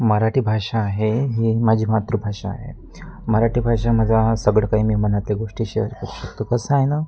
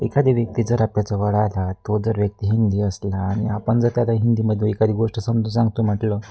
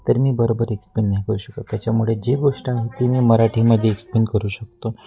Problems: constant background noise, background conversations at intervals